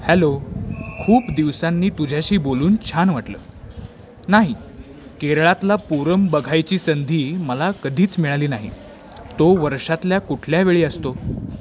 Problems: constant background noise, continuous background conversations